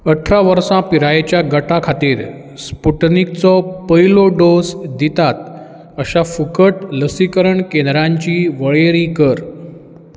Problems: background sounds at intervals